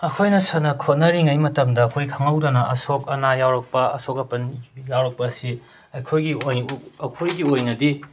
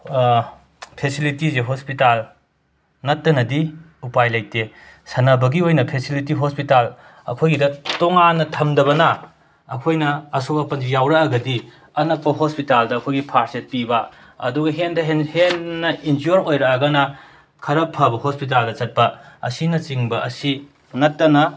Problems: constant background noise